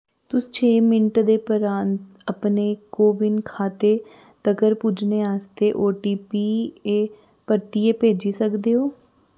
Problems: none marked